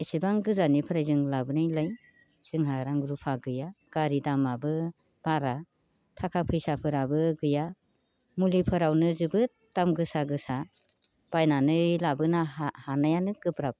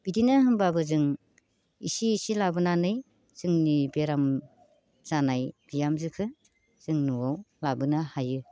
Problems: constant background noise